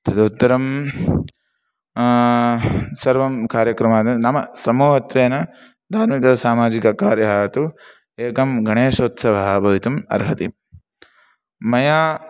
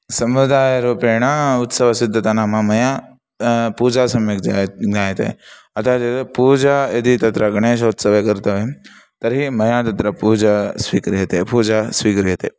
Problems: none marked